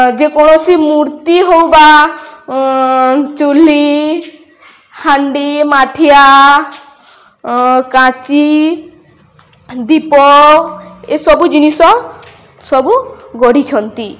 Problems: none marked